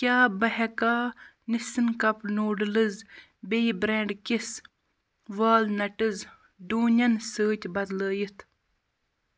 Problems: constant background noise